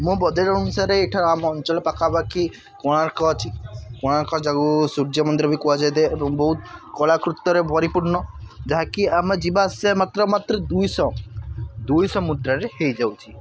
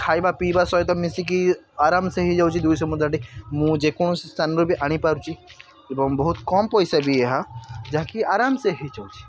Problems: constant background noise